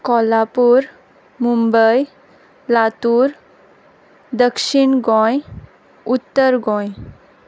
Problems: none marked